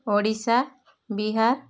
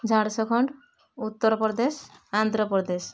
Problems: none marked